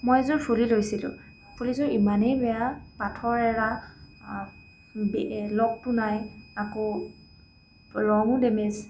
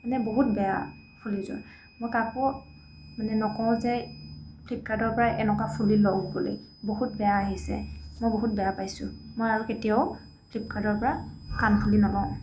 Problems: constant background noise, background conversations at intervals